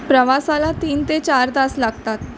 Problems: constant background noise